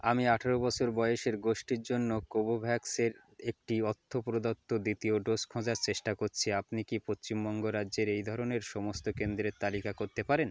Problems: none marked